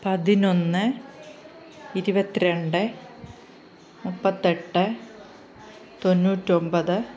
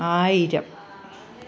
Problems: constant background noise, background conversations at intervals